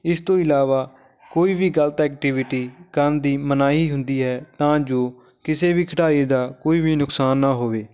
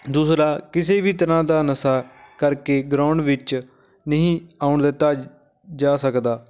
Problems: background conversations at intervals